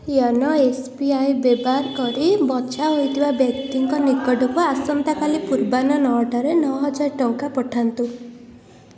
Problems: background sounds at intervals, background conversations at intervals